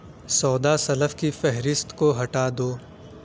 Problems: constant background noise